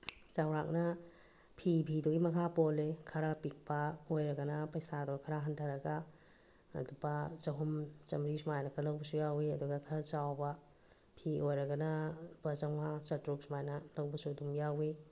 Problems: none marked